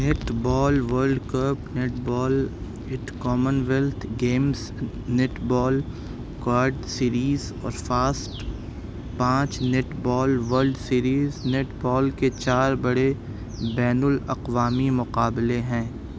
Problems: constant background noise